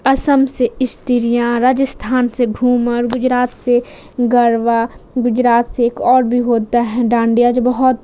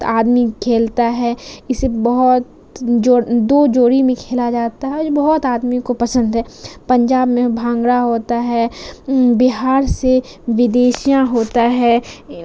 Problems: constant background noise